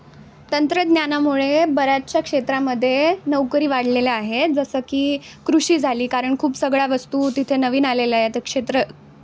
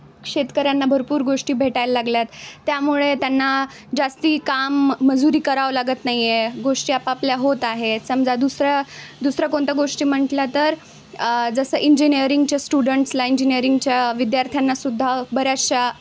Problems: constant background noise, background conversations at intervals